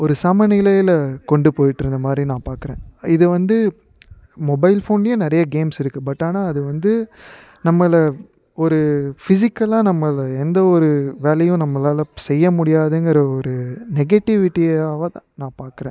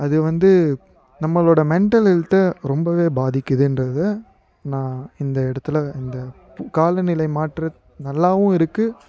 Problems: background conversations at intervals